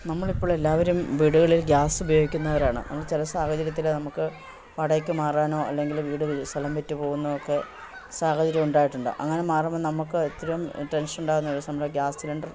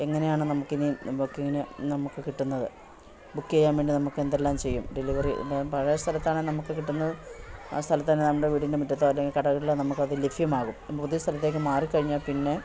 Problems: constant background noise